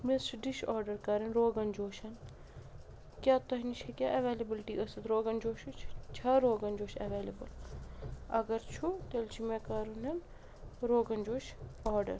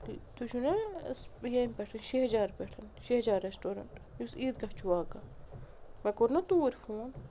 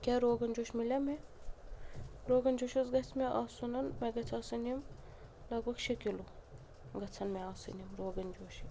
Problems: constant background noise, low volume